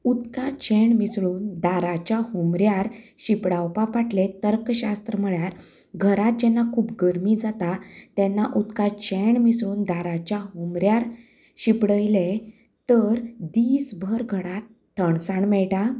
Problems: background sounds at intervals, background conversations at intervals